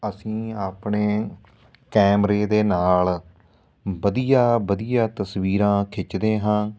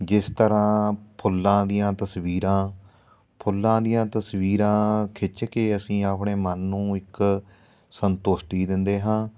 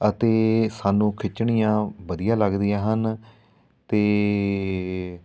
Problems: none marked